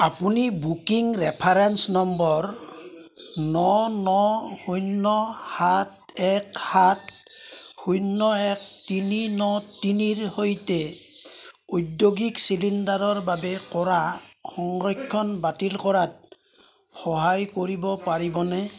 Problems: constant background noise